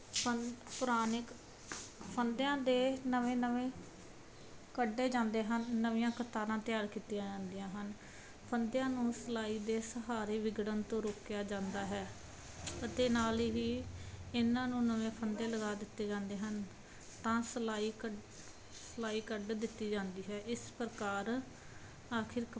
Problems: none marked